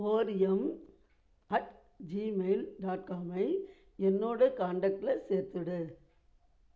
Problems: low volume